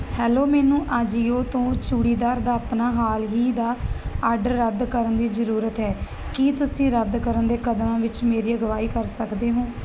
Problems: constant background noise